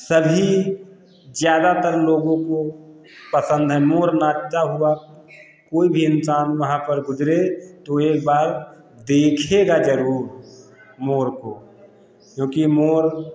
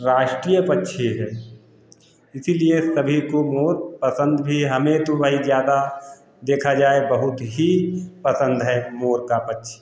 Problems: constant background noise